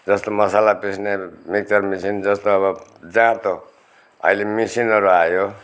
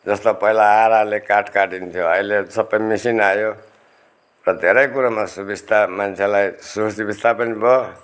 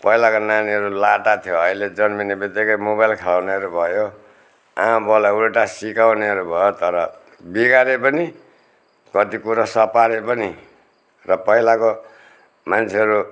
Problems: none marked